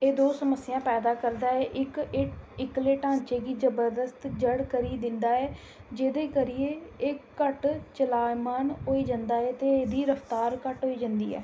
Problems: none marked